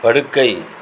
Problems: constant background noise